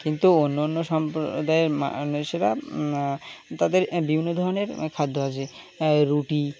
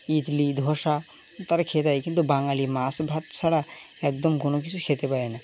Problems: background sounds at intervals